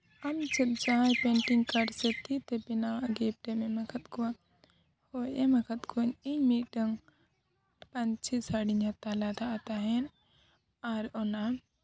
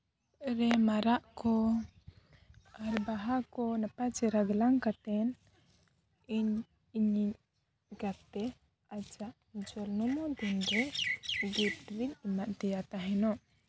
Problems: background sounds at intervals, low volume